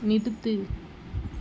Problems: low volume